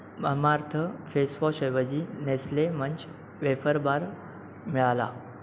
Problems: constant background noise